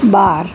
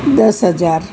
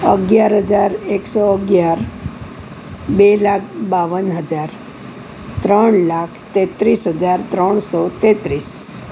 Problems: constant background noise